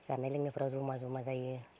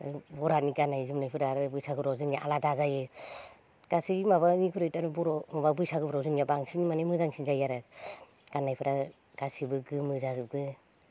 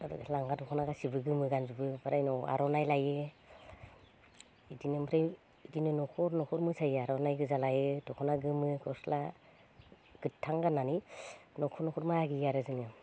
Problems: none marked